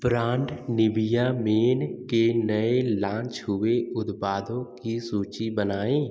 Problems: echo